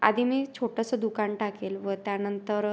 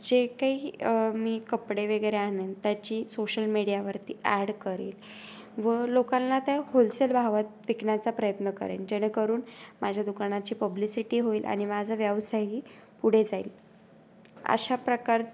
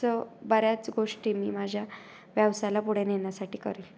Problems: constant background noise, background conversations at intervals